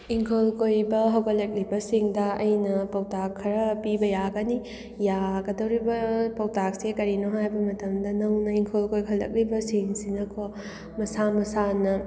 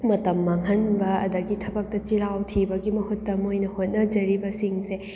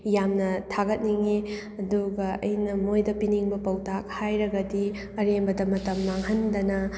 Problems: none marked